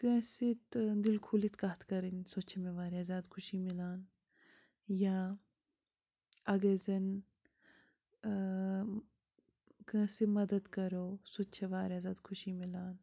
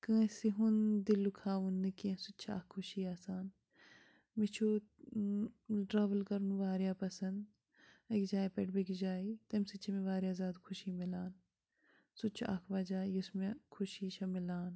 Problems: constant background noise